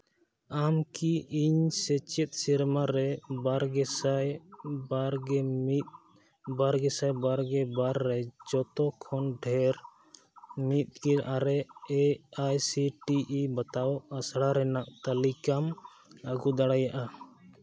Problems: constant background noise